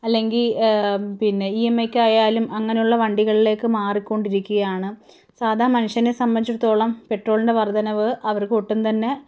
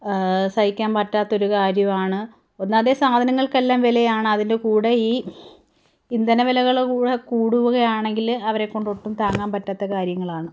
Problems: none marked